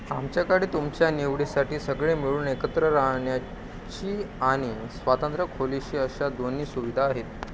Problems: constant background noise, background conversations at intervals